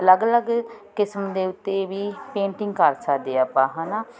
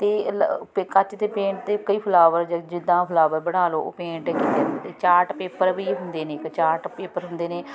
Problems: none marked